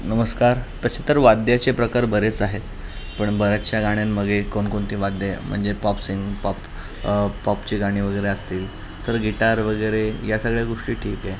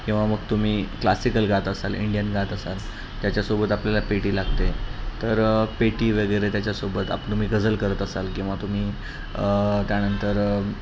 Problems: constant background noise